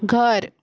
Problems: constant background noise